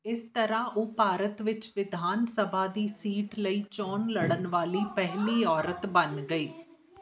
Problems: background conversations at intervals